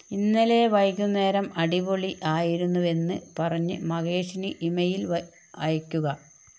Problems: none marked